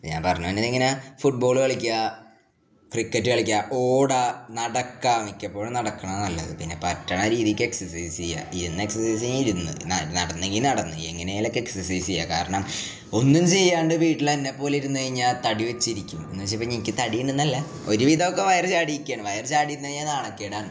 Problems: none marked